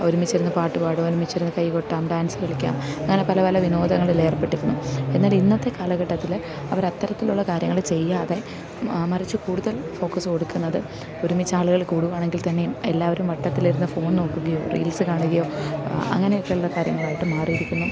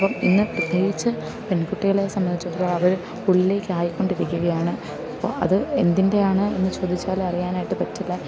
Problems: constant background noise, low volume